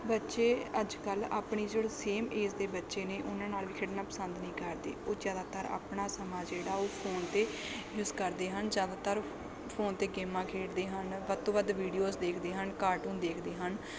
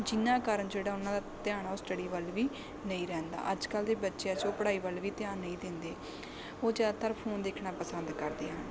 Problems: constant background noise